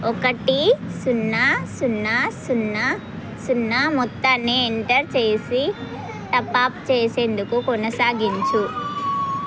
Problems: constant background noise